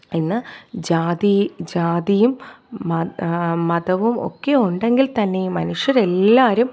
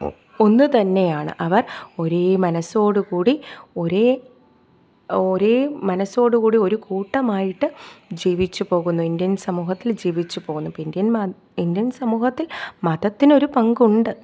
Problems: none marked